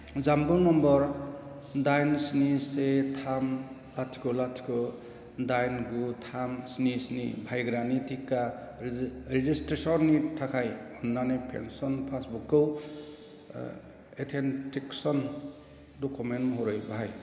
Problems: constant background noise